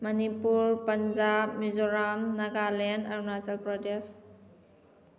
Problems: background sounds at intervals